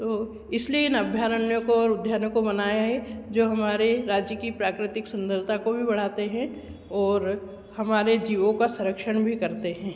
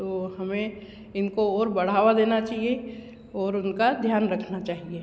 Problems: constant background noise